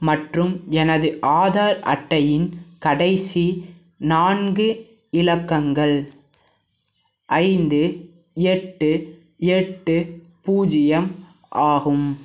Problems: background sounds at intervals